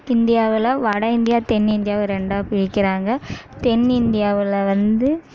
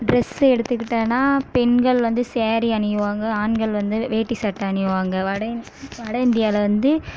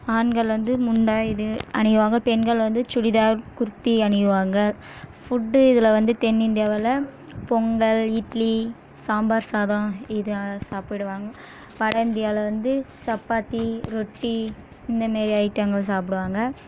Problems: background sounds at intervals